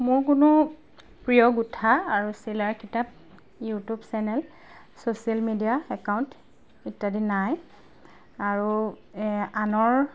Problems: background sounds at intervals